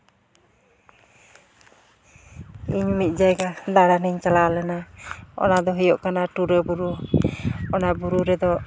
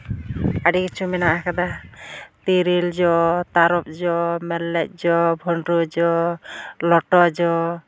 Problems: none marked